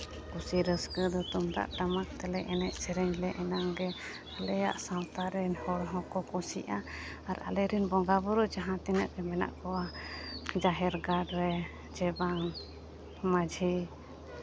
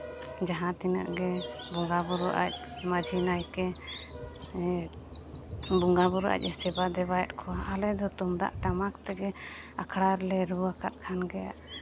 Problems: constant background noise